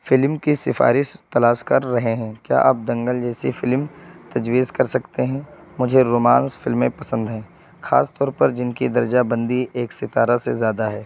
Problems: constant background noise